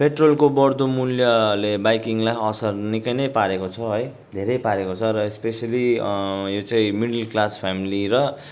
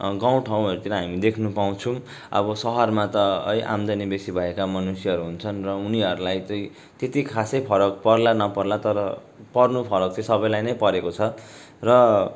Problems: constant background noise